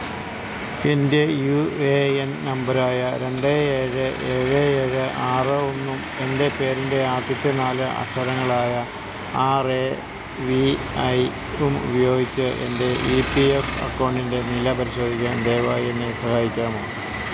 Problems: constant background noise